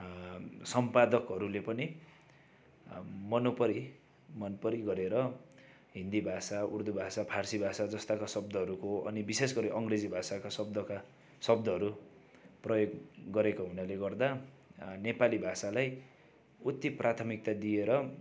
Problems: continuous background conversations